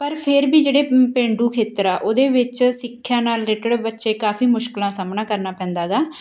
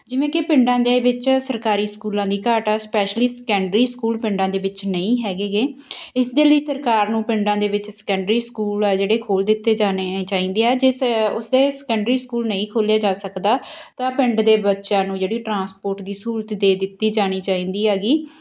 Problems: none marked